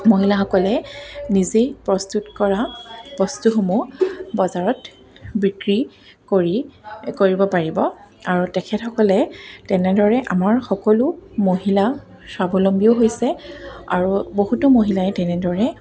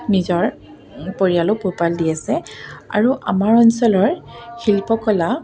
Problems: background sounds at intervals